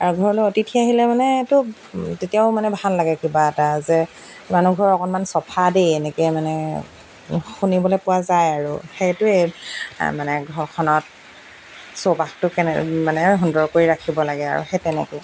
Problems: background sounds at intervals